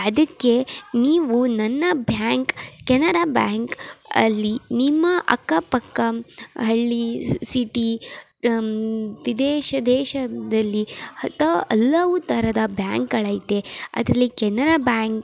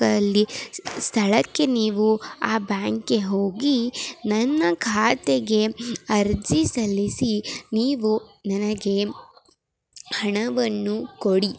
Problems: none marked